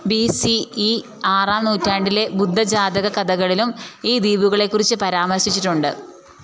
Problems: none marked